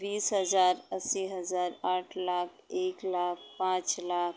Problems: background sounds at intervals